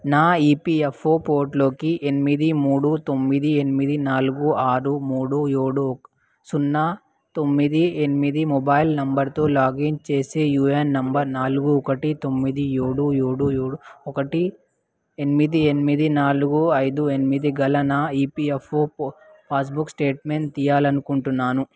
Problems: none marked